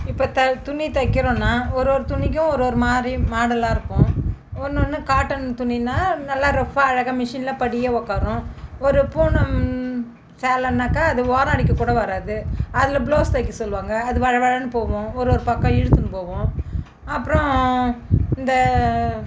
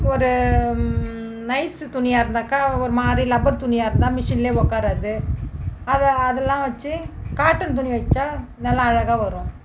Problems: background sounds at intervals